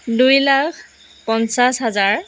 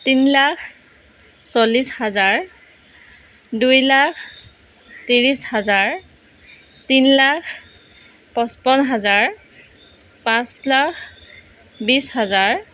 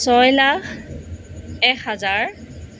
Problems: none marked